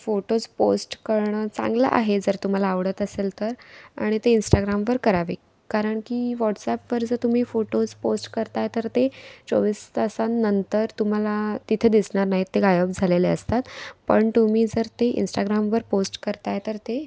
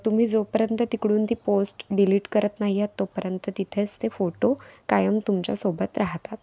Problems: constant background noise, background conversations at intervals